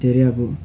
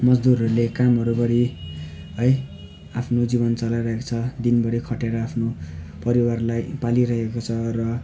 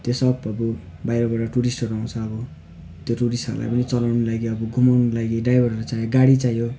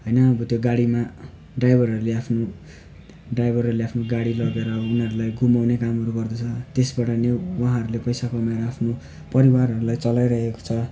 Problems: constant background noise